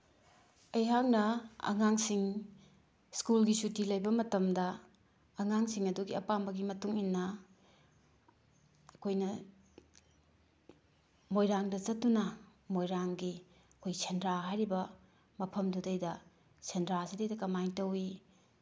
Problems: background sounds at intervals